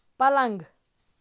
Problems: background sounds at intervals